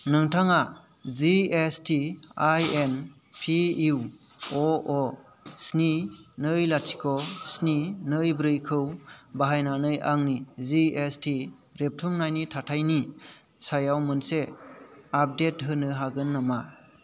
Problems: none marked